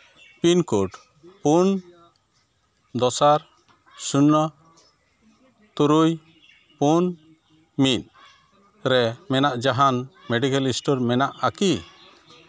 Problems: background sounds at intervals, background conversations at intervals